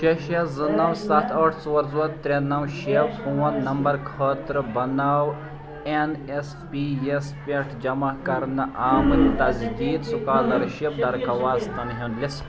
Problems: continuous background conversations